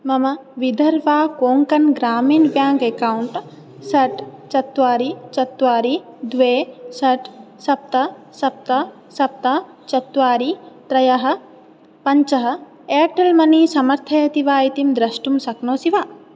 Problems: none marked